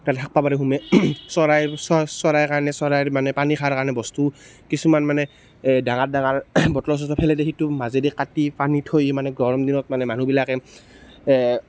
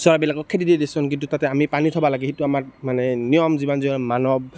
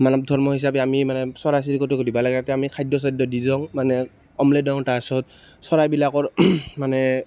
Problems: none marked